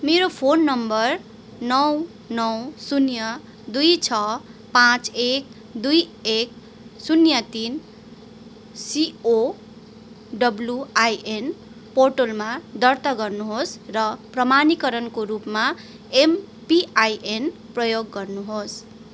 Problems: constant background noise